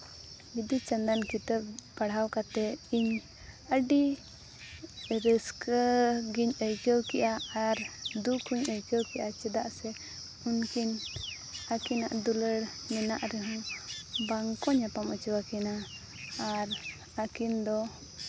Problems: constant background noise